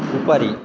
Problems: constant background noise, continuous background conversations